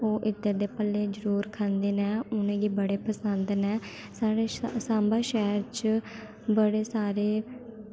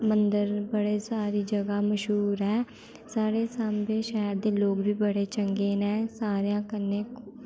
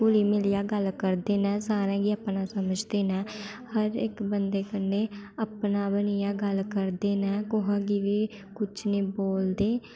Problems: constant background noise